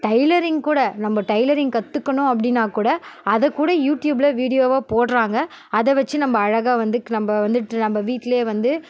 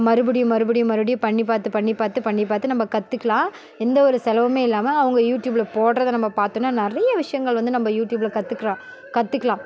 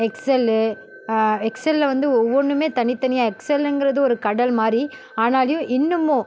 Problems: none marked